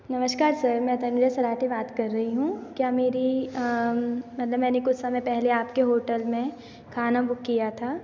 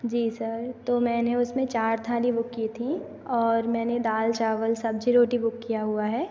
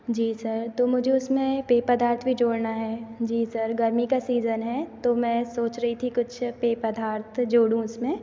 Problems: none marked